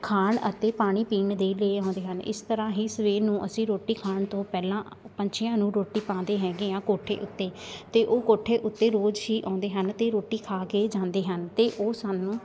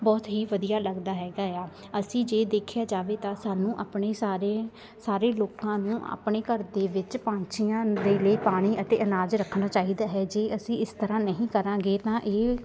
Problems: continuous background conversations